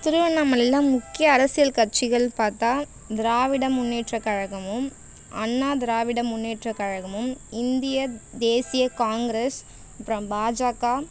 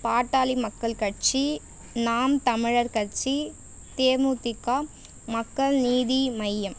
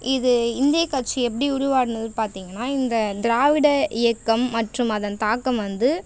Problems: none marked